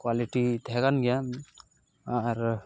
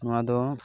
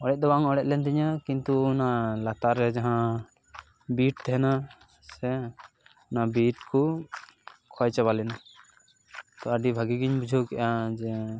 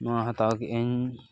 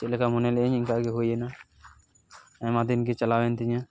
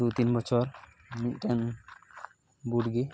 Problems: background sounds at intervals, background conversations at intervals